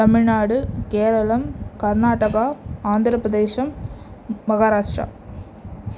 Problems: background sounds at intervals